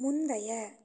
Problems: low volume